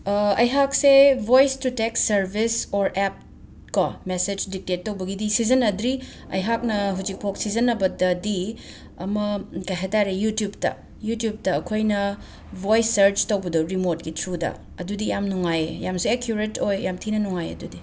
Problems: background sounds at intervals